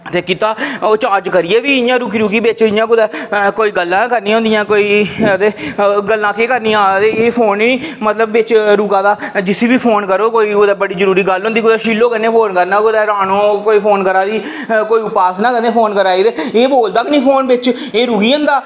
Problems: none marked